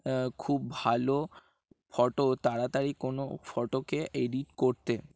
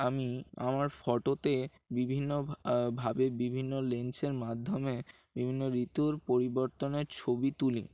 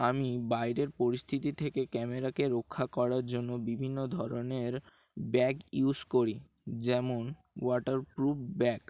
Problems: background sounds at intervals